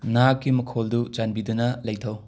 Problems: none marked